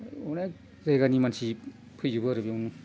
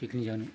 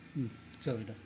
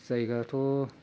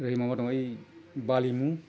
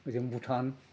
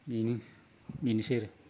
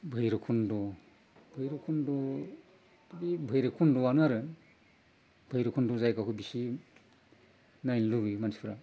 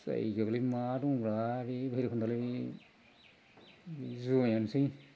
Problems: low volume